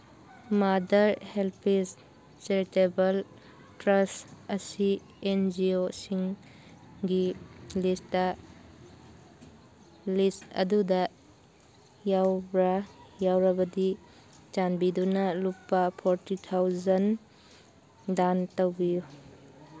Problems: background sounds at intervals